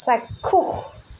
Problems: constant background noise